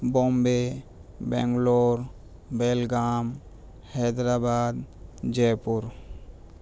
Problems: constant background noise